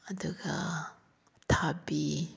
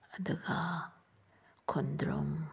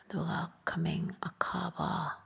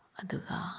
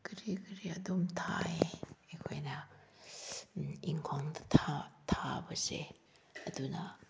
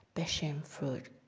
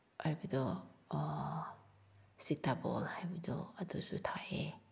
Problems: background sounds at intervals